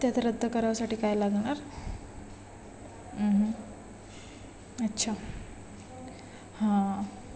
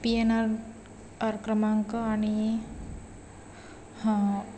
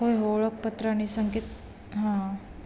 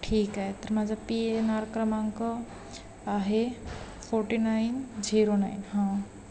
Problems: constant background noise, continuous background conversations